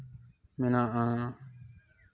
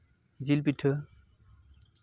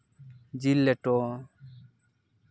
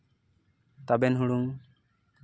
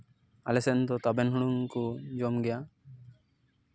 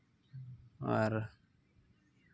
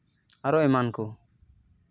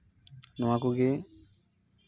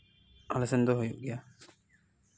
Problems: none marked